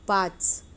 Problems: constant background noise